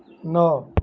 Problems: none marked